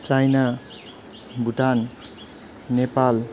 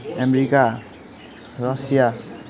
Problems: background sounds at intervals, continuous background conversations